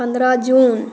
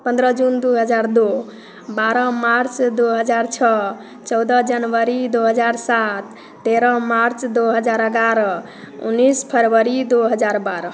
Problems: constant background noise, background conversations at intervals